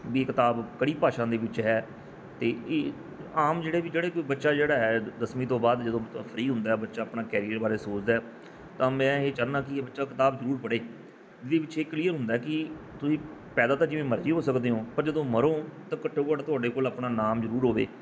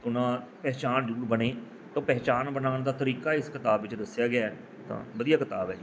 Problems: background sounds at intervals